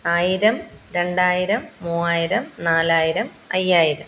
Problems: background conversations at intervals